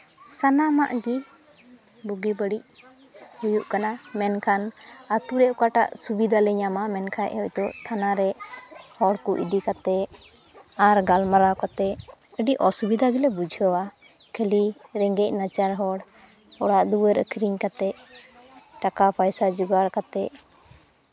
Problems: constant background noise, continuous background conversations